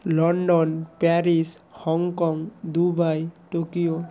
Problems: continuous background conversations